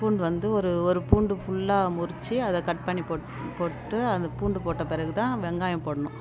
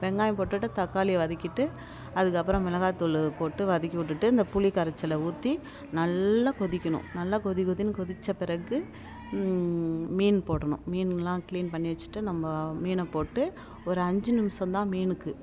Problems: constant background noise